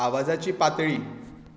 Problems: echo